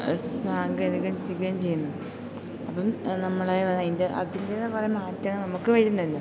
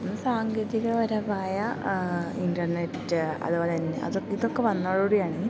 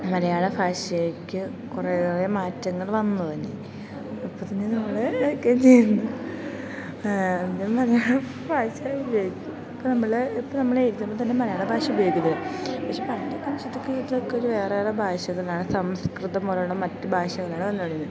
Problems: constant background noise, low volume